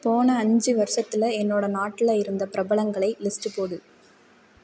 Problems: none marked